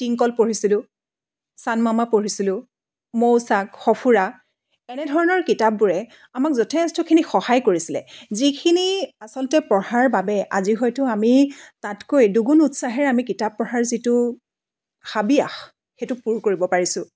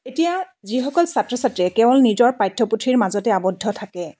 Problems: none marked